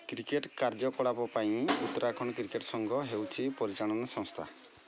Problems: constant background noise